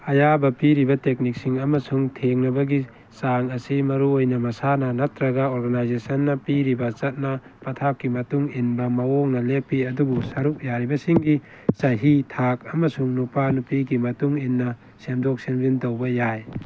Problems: background sounds at intervals